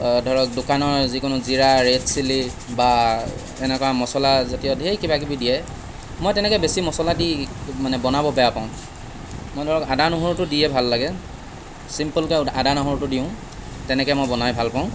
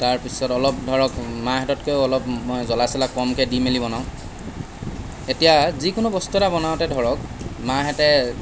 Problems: none marked